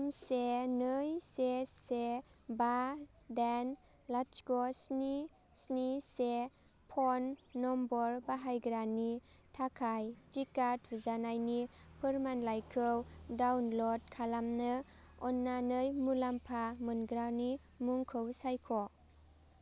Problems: none marked